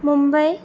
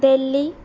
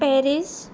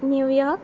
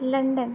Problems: constant background noise